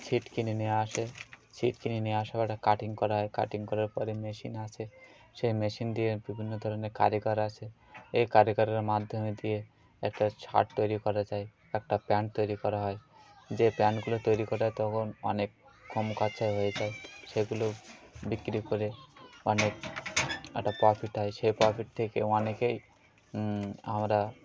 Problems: none marked